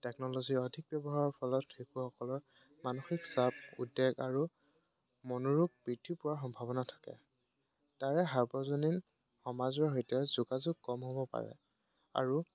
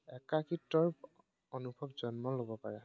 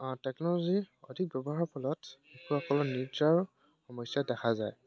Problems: background sounds at intervals